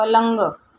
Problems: background sounds at intervals